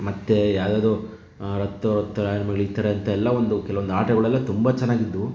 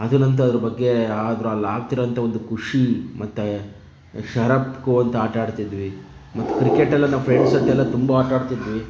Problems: none marked